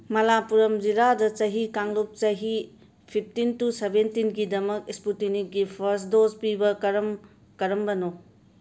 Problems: background sounds at intervals